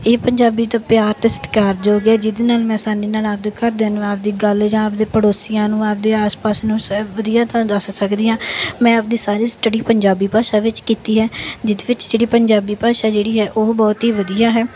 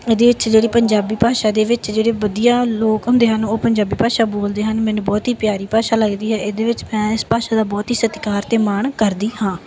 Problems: background sounds at intervals